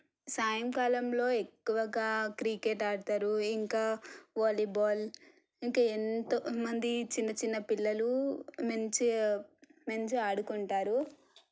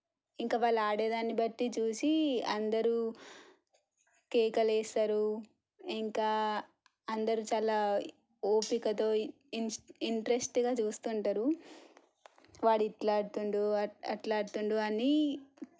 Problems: low volume